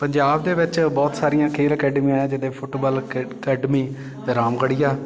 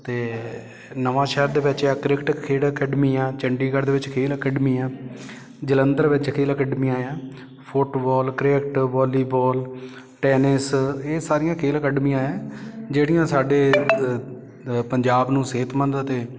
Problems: background sounds at intervals, background conversations at intervals